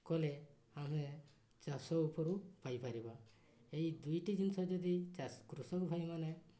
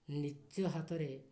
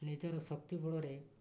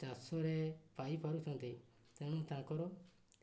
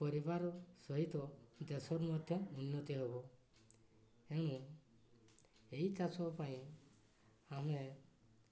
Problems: none marked